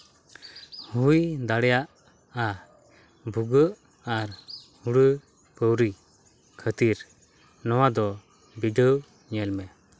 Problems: none marked